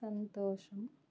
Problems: low volume